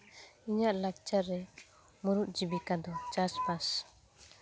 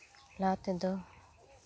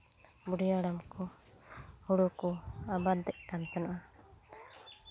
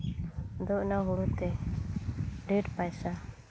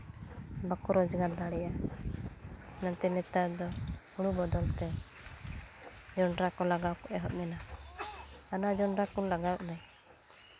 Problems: background sounds at intervals